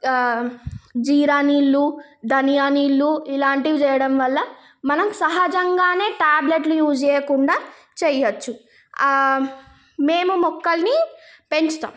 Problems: background sounds at intervals